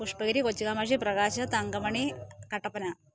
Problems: low volume